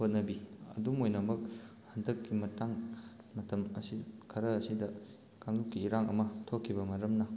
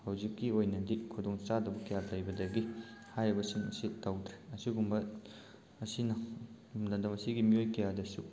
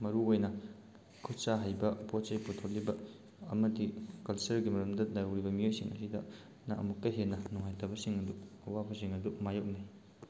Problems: background sounds at intervals